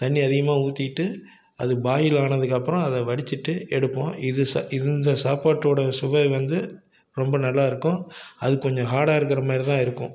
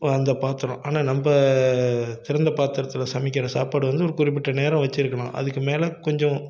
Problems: none marked